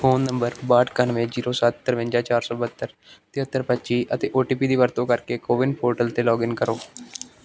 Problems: background sounds at intervals